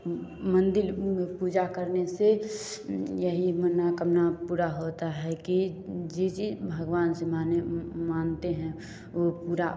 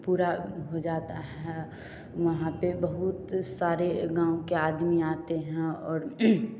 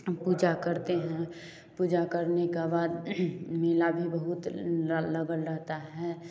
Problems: none marked